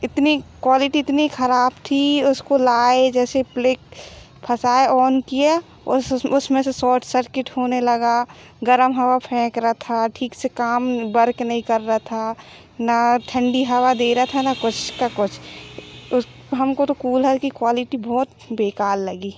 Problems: background sounds at intervals